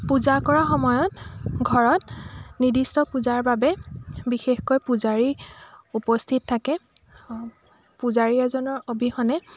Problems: constant background noise, background conversations at intervals